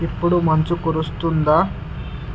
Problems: constant background noise